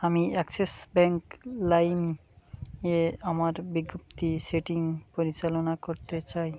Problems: constant background noise